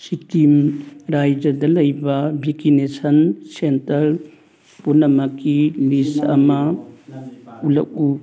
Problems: background sounds at intervals